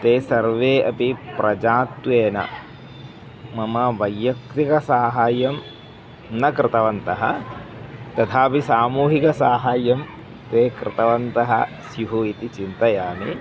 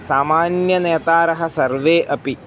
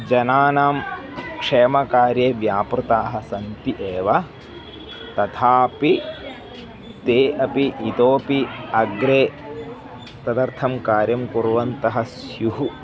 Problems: background sounds at intervals